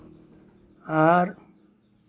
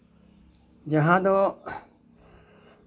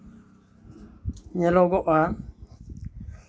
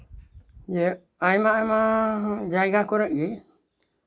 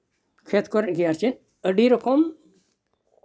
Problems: background sounds at intervals